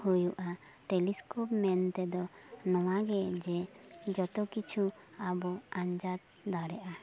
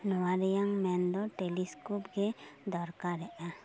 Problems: background sounds at intervals